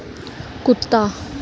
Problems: background sounds at intervals